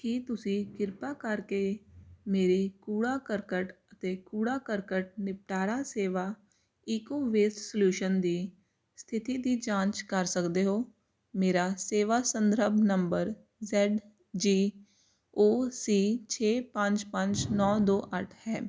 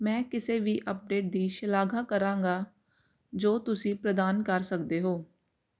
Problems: constant background noise